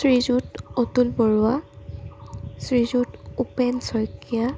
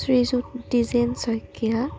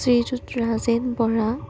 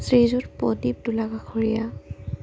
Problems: constant background noise